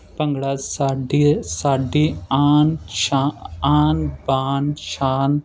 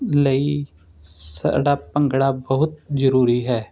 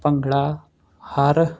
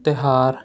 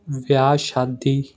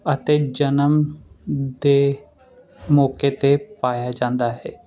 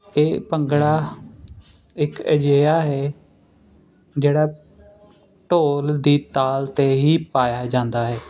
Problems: constant background noise